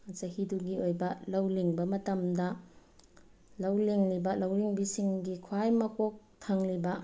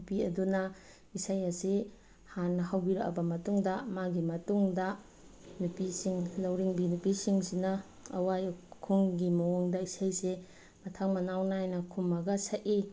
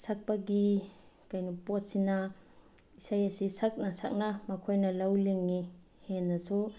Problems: none marked